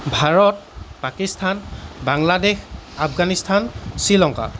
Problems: background sounds at intervals